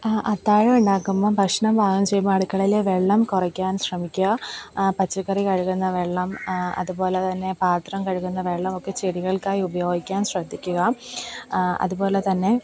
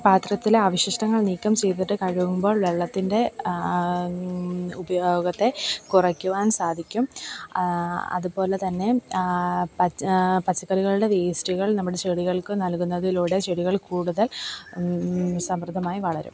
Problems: background sounds at intervals